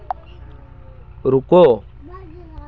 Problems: constant background noise, continuous background conversations